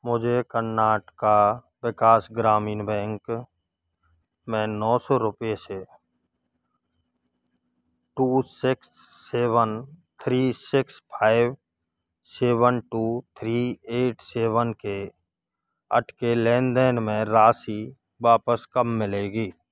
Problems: none marked